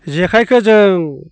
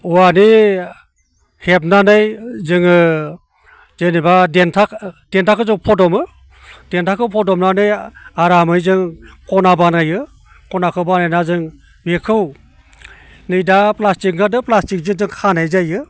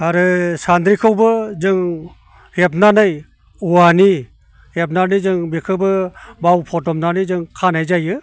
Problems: constant background noise